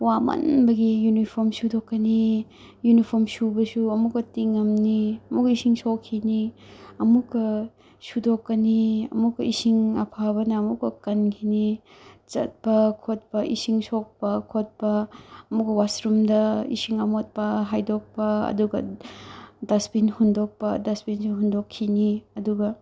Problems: none marked